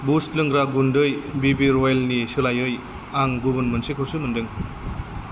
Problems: constant background noise